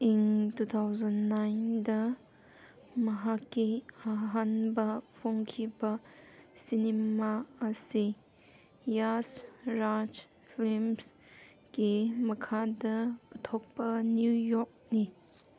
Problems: background sounds at intervals